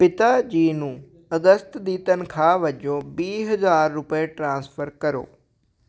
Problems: none marked